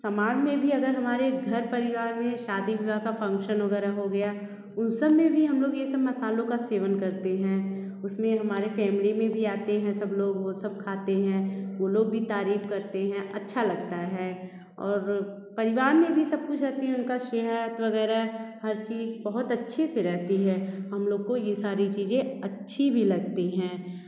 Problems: constant background noise